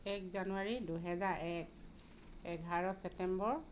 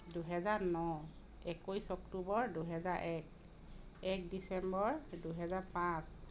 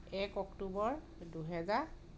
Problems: none marked